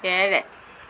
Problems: constant background noise